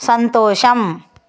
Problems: none marked